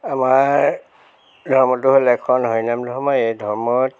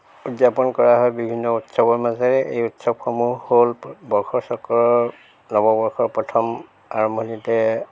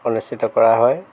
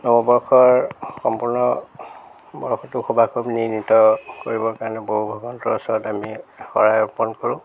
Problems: none marked